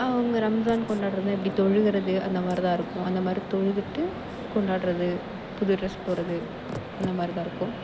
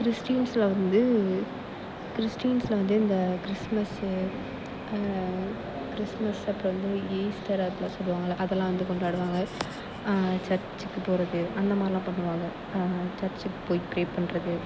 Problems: constant background noise